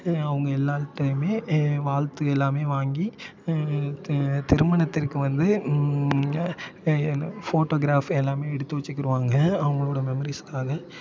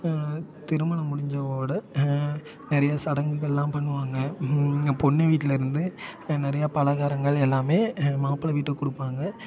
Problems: constant background noise, continuous background conversations